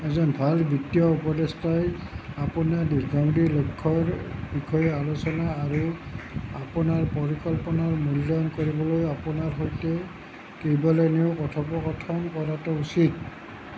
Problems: constant background noise